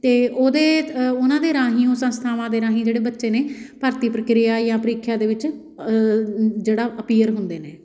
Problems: none marked